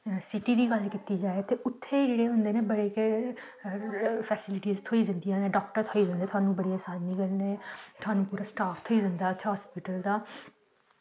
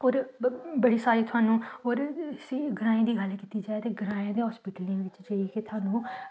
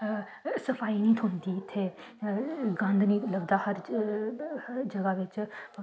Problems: background sounds at intervals, low volume